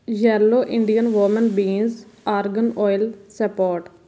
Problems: background sounds at intervals